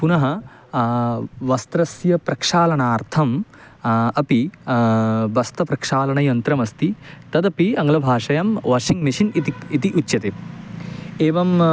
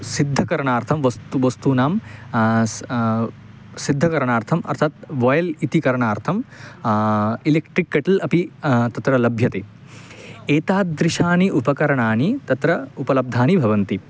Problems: constant background noise